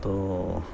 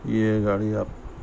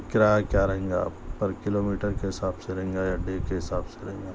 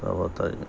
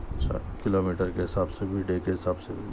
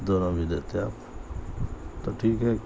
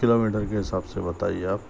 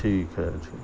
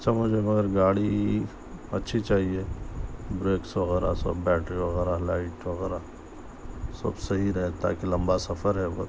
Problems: constant background noise